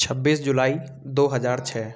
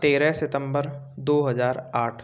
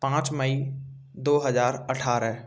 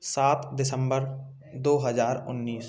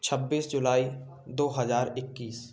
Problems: constant background noise, continuous background conversations